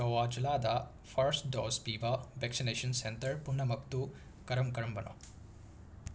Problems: constant background noise